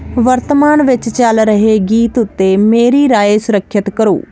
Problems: constant background noise